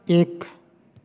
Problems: background sounds at intervals